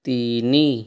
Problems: none marked